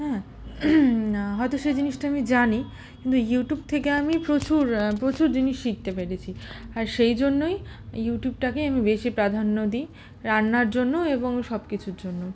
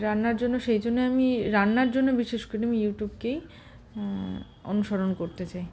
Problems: none marked